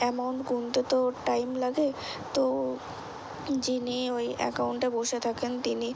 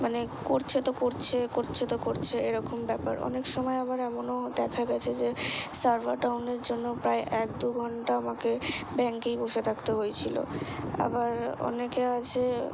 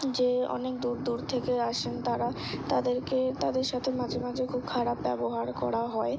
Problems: background sounds at intervals